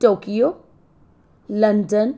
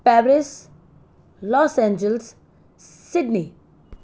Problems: constant background noise